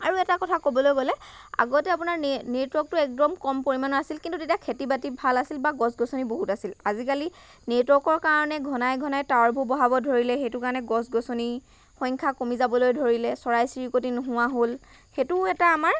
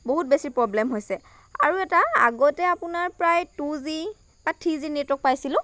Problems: constant background noise